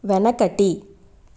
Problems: constant background noise